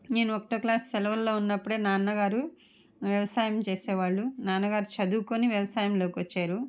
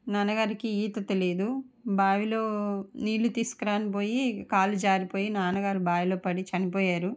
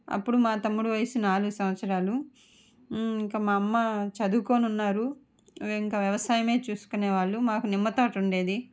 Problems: none marked